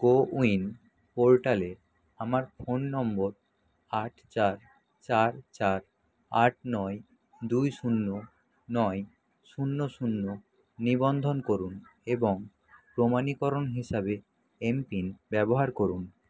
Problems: constant background noise